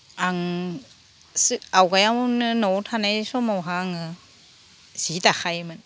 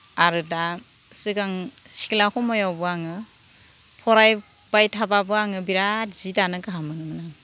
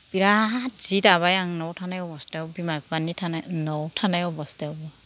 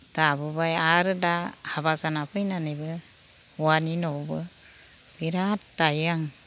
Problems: none marked